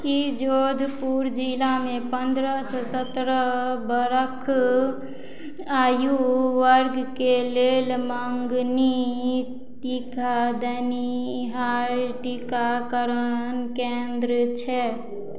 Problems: none marked